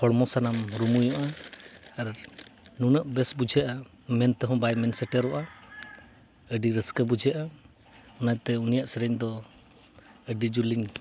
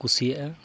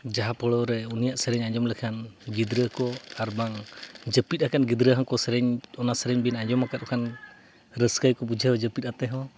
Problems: background sounds at intervals